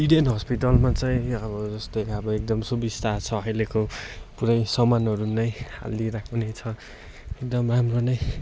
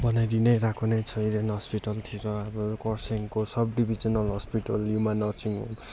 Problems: constant background noise